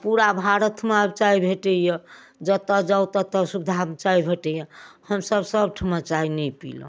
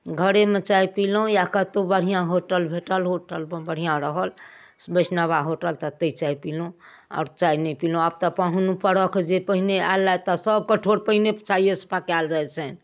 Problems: none marked